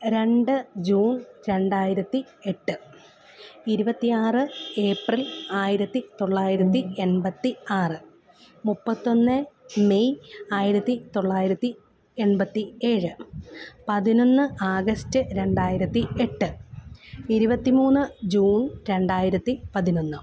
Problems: background sounds at intervals, low volume